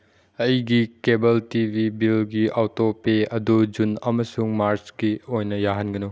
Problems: none marked